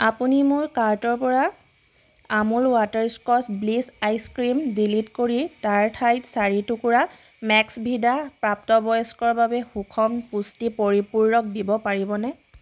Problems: constant background noise